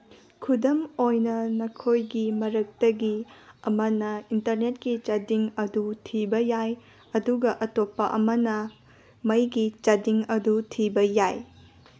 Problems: background sounds at intervals, background conversations at intervals